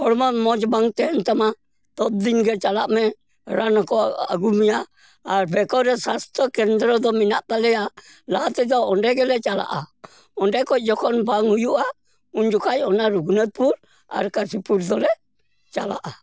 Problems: none marked